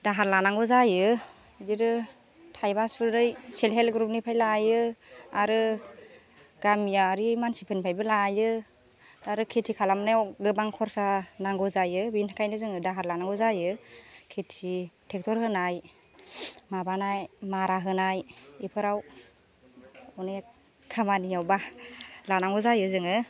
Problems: constant background noise